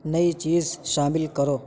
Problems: constant background noise